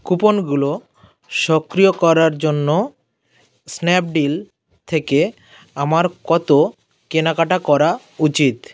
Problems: constant background noise